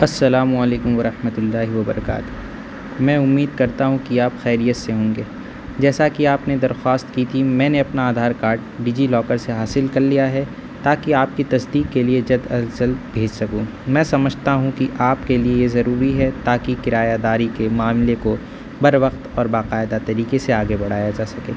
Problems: constant background noise